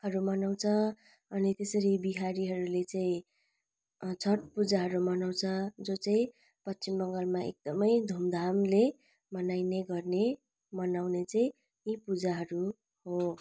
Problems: none marked